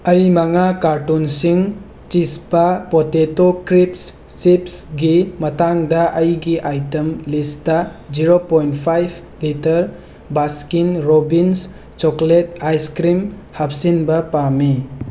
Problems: constant background noise